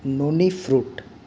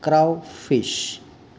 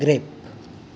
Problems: background sounds at intervals